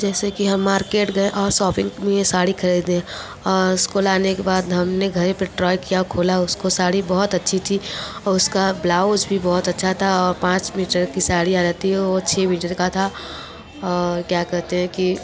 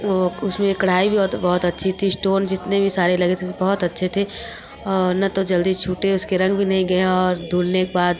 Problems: constant background noise